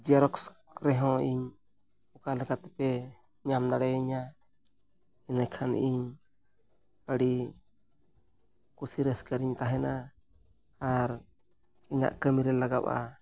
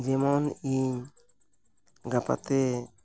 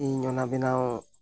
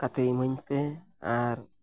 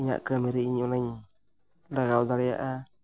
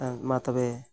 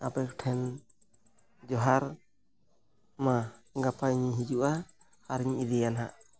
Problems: none marked